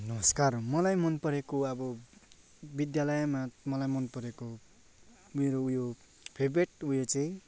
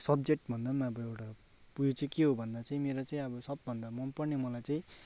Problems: none marked